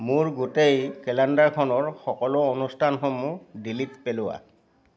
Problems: constant background noise, background conversations at intervals